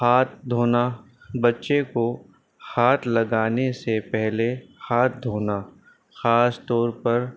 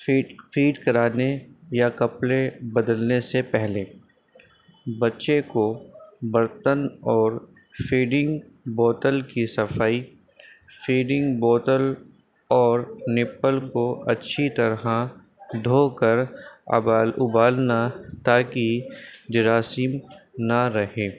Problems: constant background noise